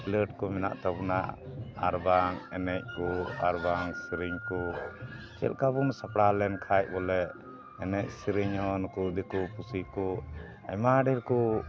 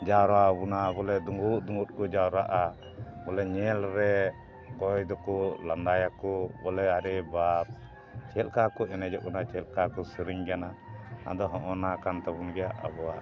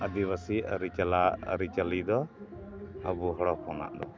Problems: constant background noise